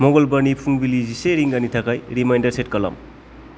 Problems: constant background noise